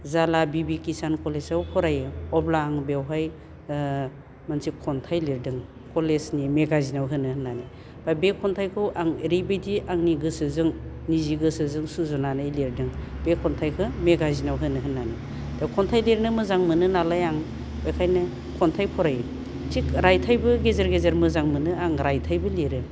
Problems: none marked